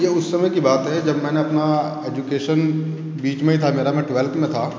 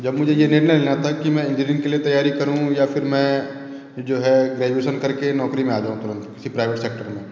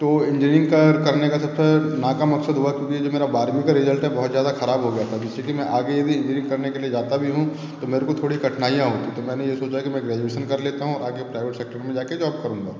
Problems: echo